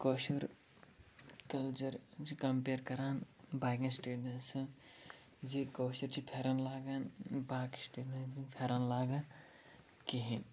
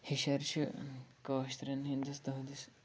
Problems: none marked